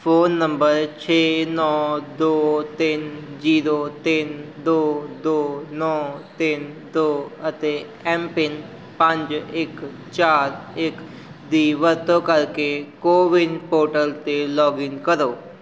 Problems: background sounds at intervals